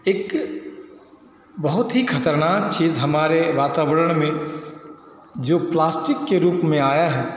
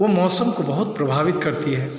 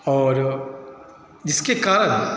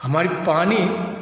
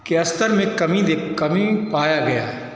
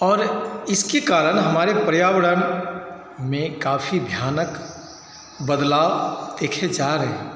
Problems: constant background noise, echo